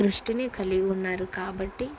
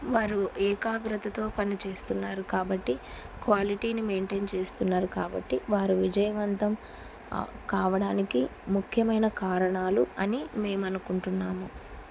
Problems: constant background noise